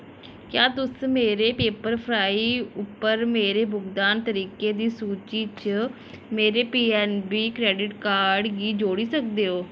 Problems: constant background noise